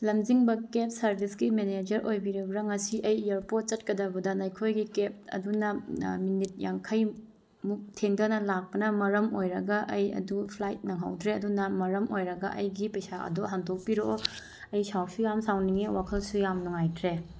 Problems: none marked